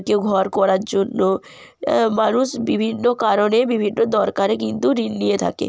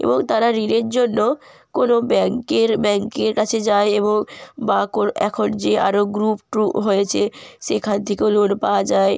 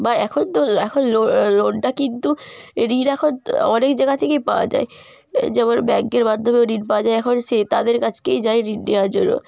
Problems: background sounds at intervals